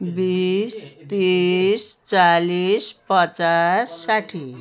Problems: constant background noise